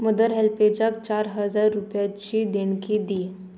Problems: constant background noise